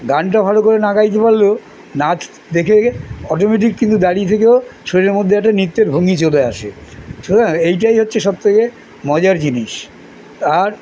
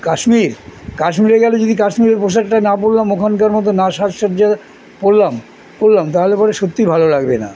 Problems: none marked